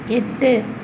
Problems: constant background noise